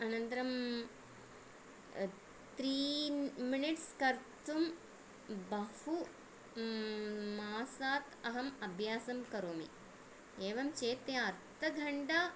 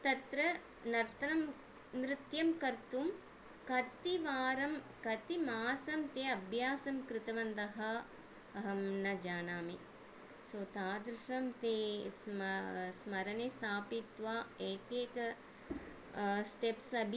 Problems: none marked